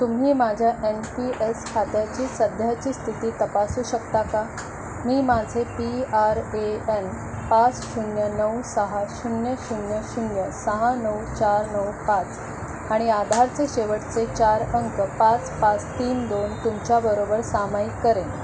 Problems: constant background noise